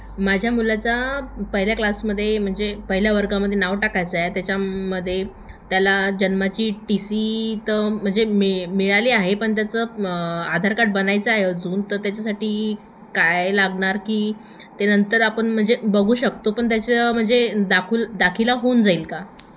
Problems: none marked